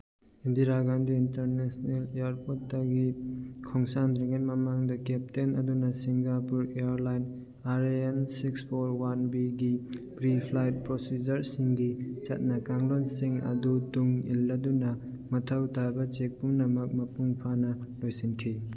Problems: none marked